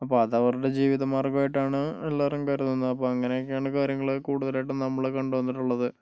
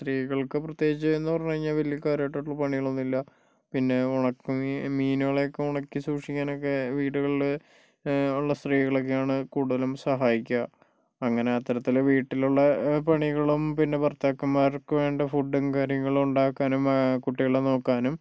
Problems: low volume